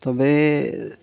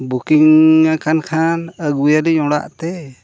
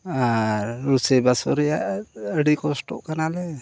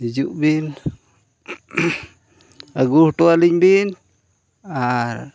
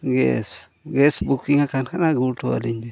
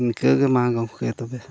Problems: none marked